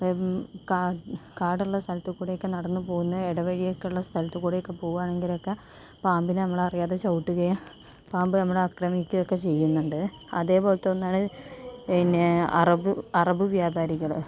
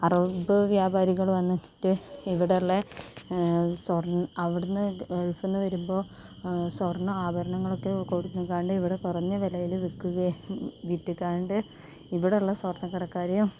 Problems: none marked